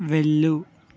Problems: constant background noise